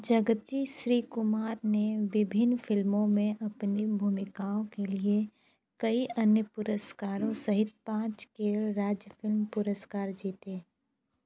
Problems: constant background noise